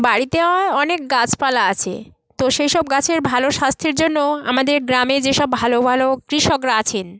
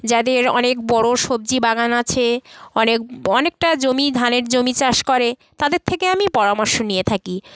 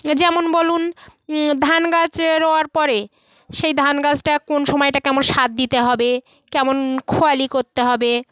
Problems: constant background noise